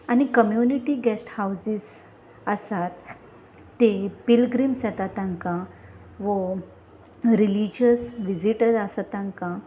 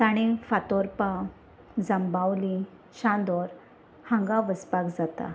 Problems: none marked